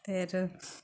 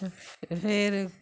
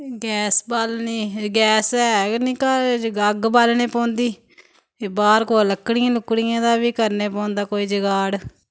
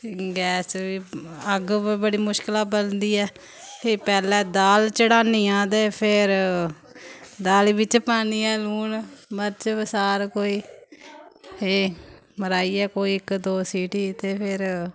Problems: background sounds at intervals